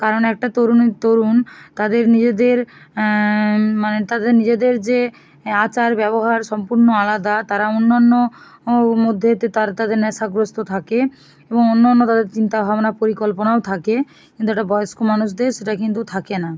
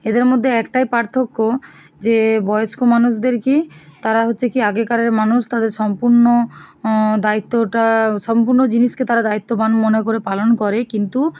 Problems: none marked